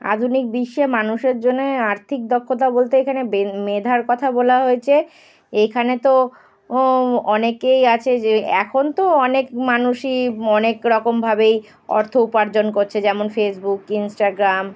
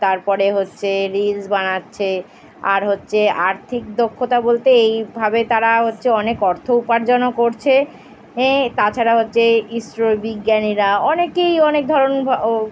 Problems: background sounds at intervals